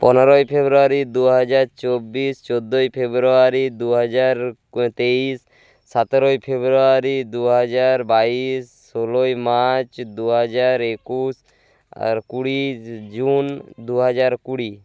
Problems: background sounds at intervals